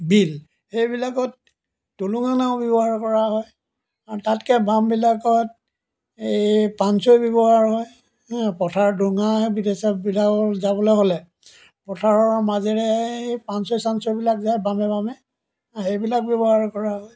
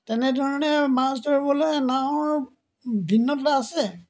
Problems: background sounds at intervals